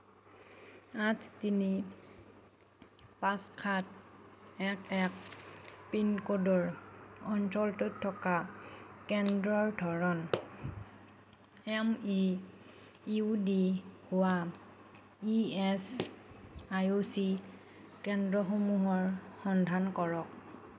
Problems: none marked